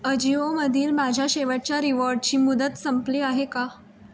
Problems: constant background noise